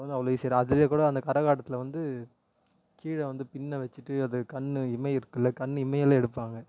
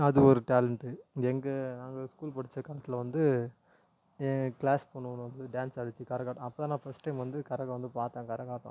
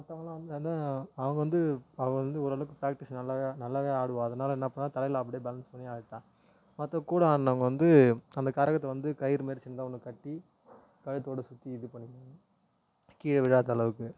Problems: low volume